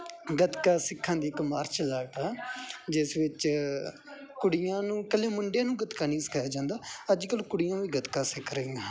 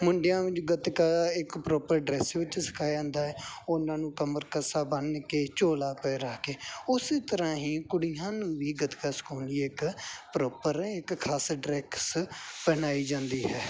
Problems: background sounds at intervals